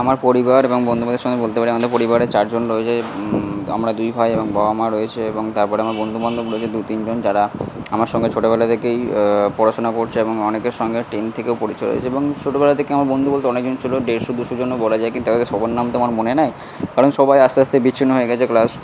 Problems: constant background noise